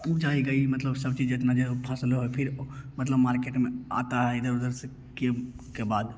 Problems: none marked